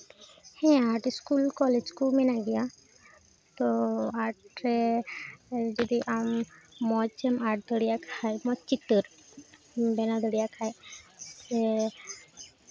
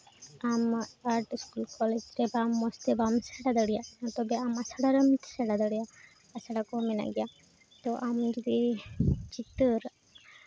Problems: constant background noise, continuous background conversations